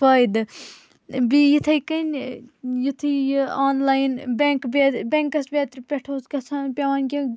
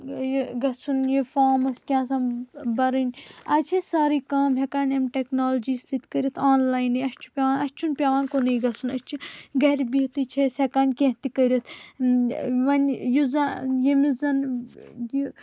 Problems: constant background noise